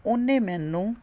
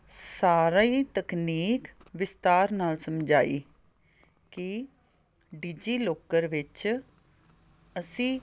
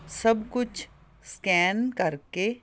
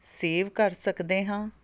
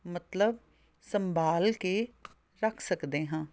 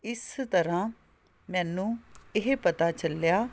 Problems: none marked